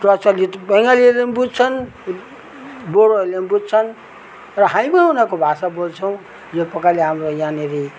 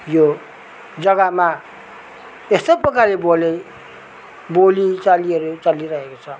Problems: none marked